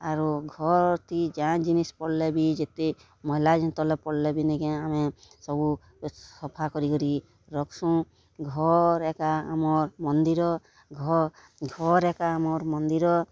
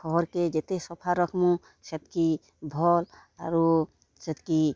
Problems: none marked